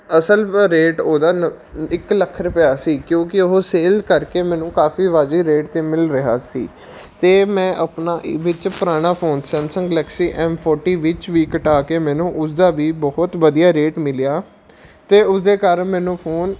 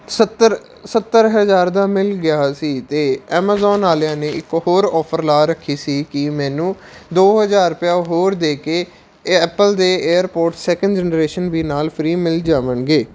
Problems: none marked